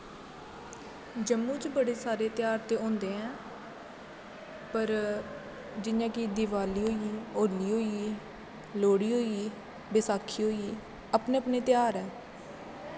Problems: constant background noise, background conversations at intervals, echo